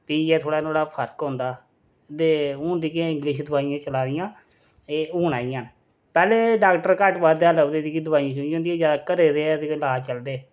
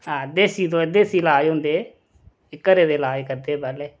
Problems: none marked